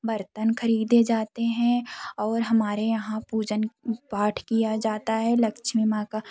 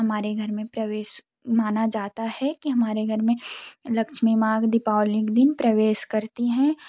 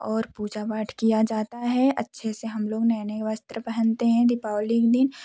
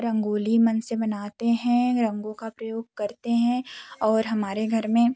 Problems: none marked